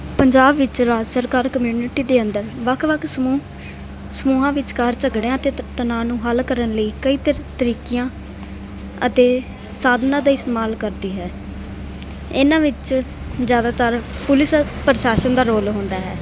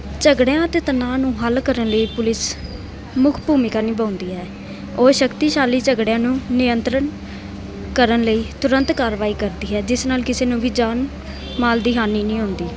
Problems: none marked